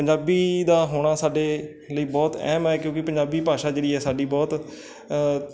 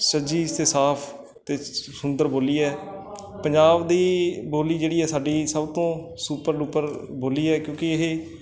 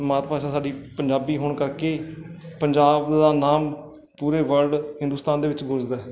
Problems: none marked